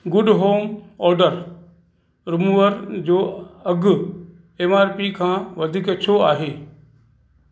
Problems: constant background noise, echo